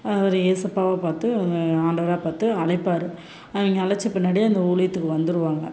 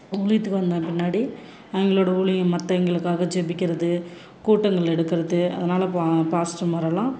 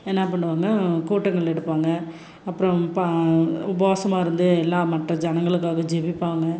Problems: constant background noise